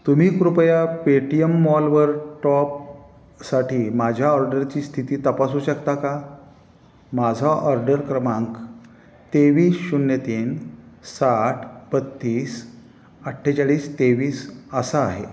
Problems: none marked